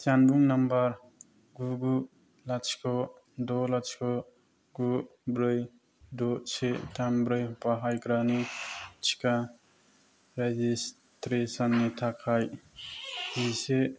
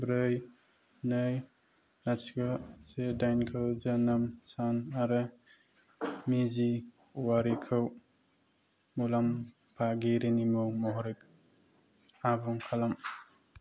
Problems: none marked